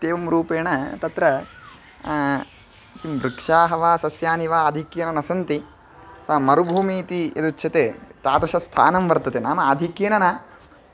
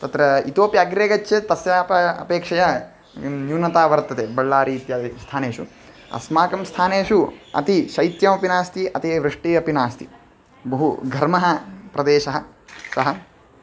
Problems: constant background noise